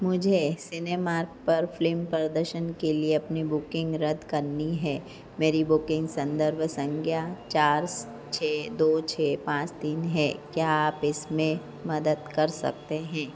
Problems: low volume